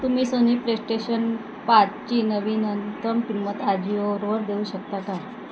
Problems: constant background noise